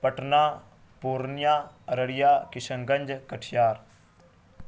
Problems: constant background noise